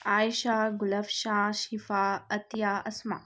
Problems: none marked